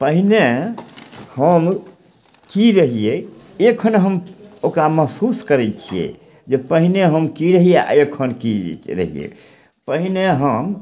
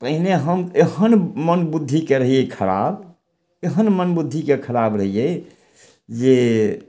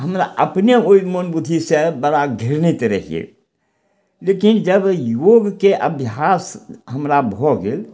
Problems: none marked